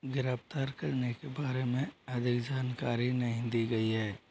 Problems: low volume